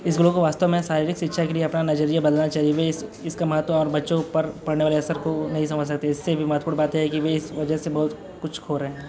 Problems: none marked